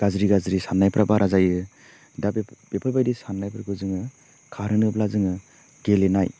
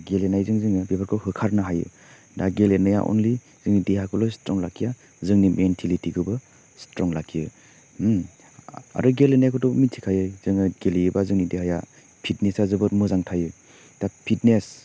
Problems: constant background noise